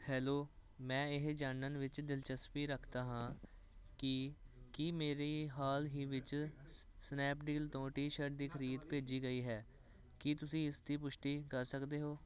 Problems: constant background noise